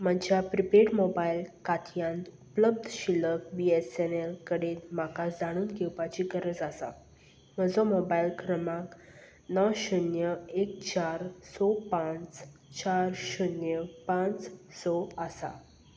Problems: none marked